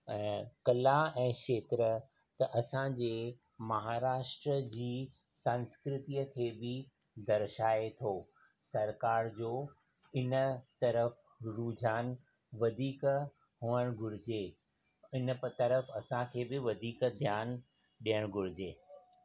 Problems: constant background noise, low volume